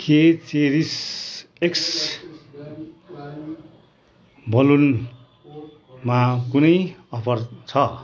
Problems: continuous background conversations